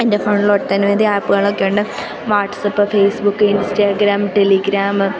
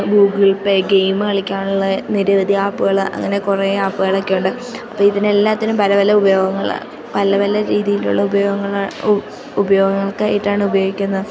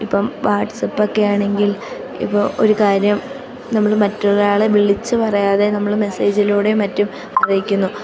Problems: constant background noise, low volume